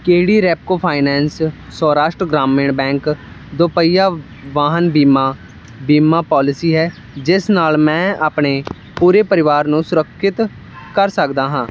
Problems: constant background noise